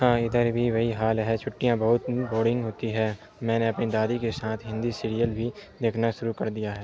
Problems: constant background noise